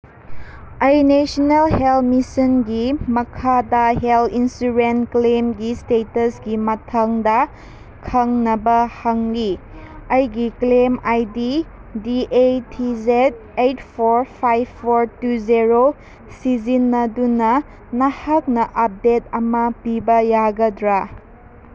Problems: constant background noise